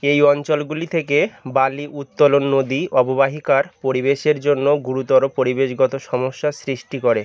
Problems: constant background noise